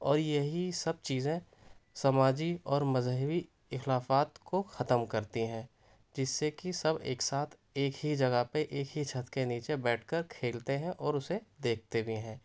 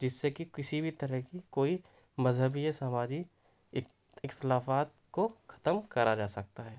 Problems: none marked